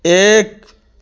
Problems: none marked